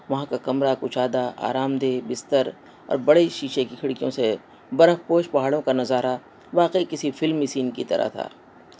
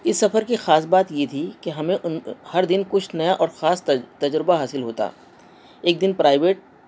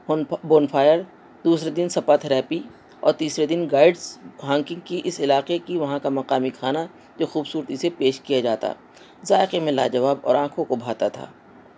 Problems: constant background noise